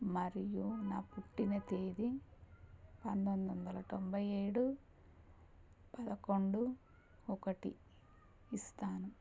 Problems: none marked